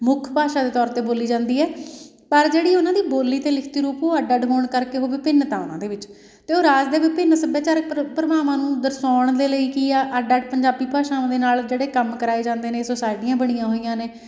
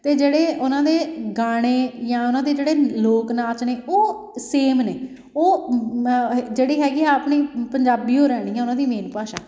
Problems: background sounds at intervals